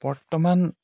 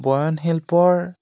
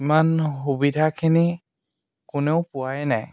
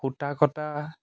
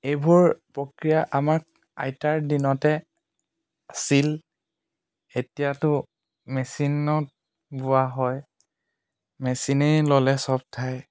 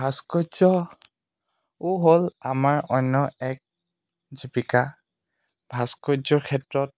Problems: none marked